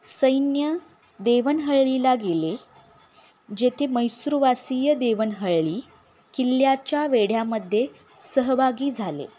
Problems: none marked